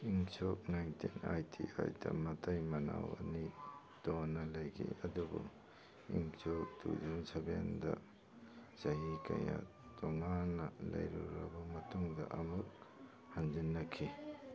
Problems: background sounds at intervals, background conversations at intervals